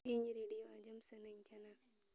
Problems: constant background noise